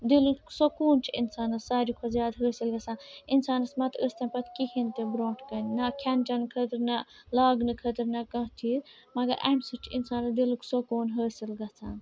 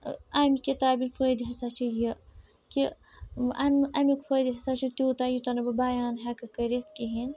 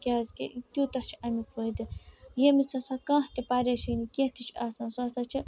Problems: constant background noise